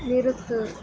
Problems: constant background noise